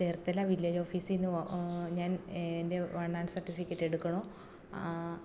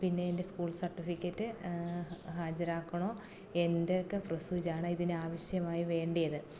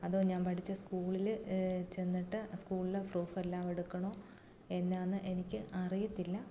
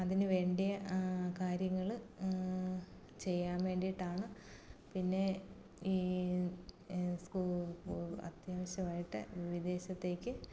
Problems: background conversations at intervals, low volume